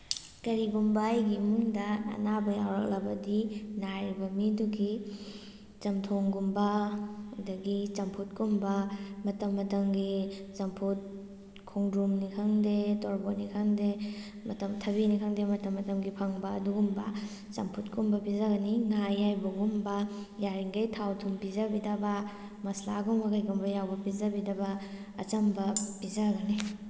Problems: background sounds at intervals